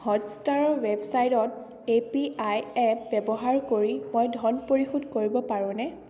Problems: constant background noise